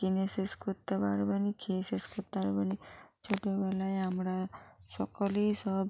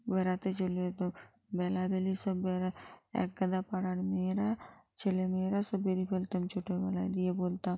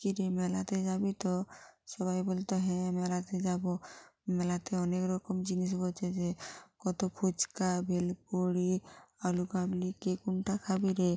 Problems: constant background noise